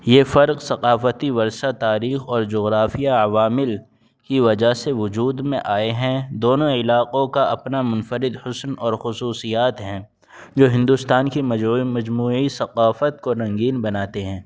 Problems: background sounds at intervals, background conversations at intervals